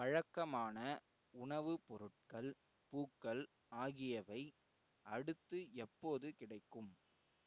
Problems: none marked